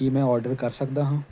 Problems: constant background noise